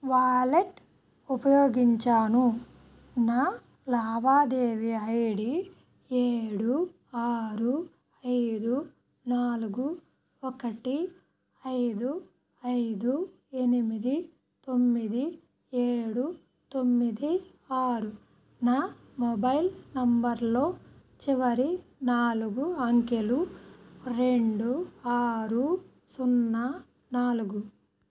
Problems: none marked